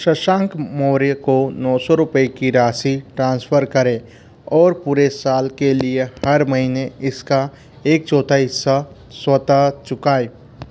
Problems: constant background noise